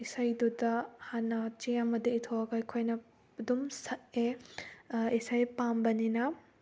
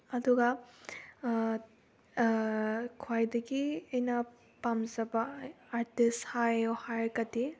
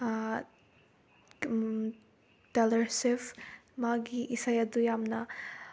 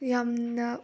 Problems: none marked